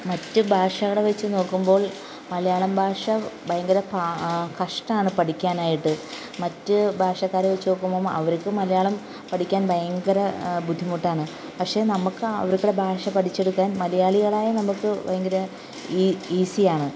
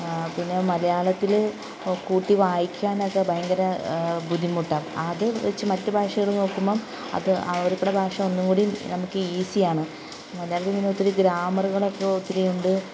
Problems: constant background noise